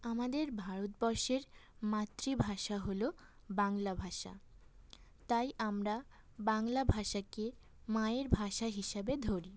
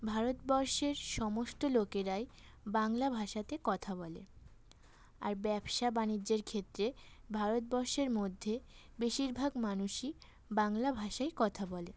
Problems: constant background noise